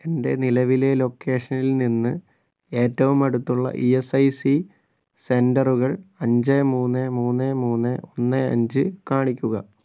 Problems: none marked